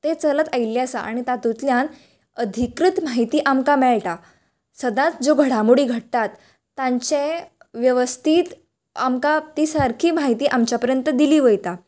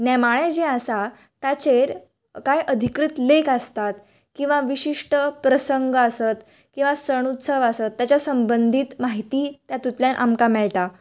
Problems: none marked